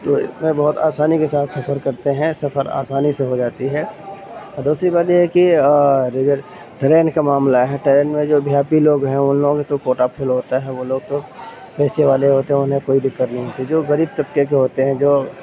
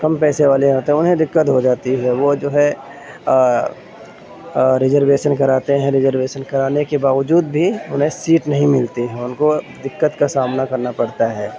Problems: constant background noise